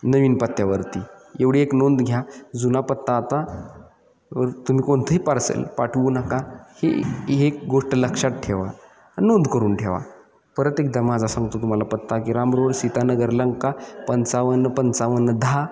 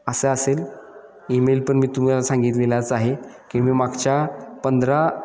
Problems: none marked